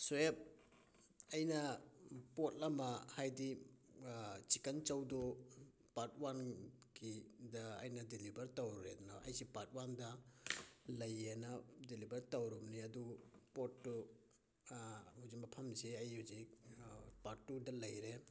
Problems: background sounds at intervals, low volume